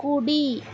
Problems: constant background noise